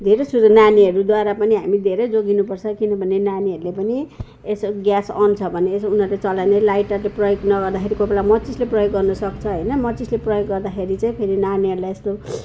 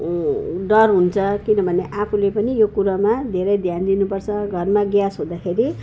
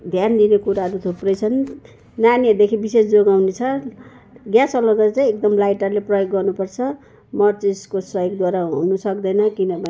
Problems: none marked